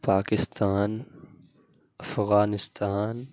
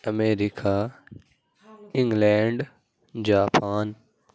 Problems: background sounds at intervals